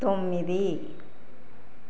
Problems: none marked